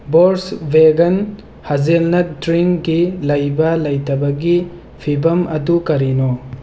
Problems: constant background noise